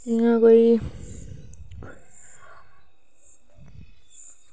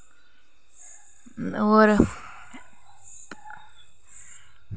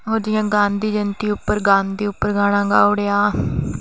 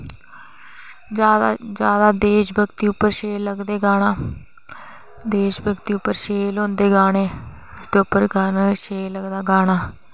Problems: none marked